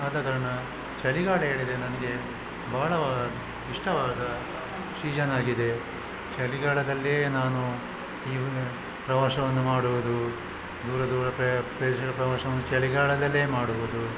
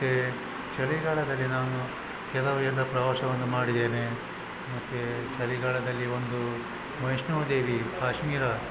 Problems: constant background noise